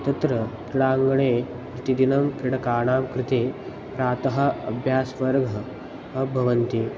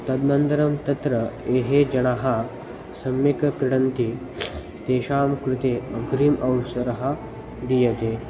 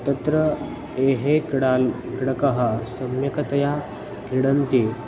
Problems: background sounds at intervals